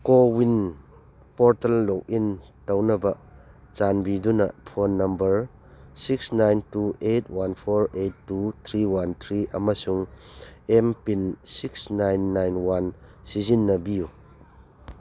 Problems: none marked